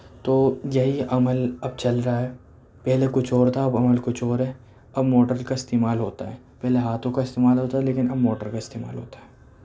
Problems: background sounds at intervals